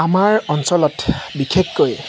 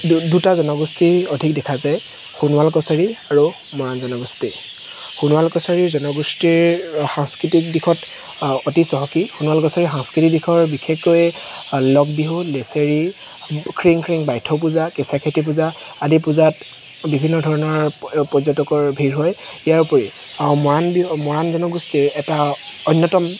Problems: constant background noise